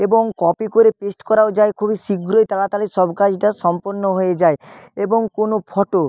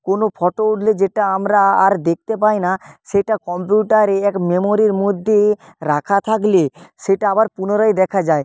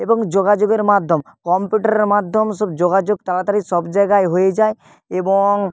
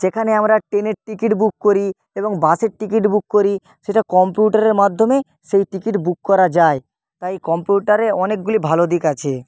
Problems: none marked